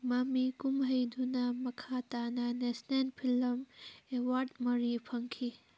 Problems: background sounds at intervals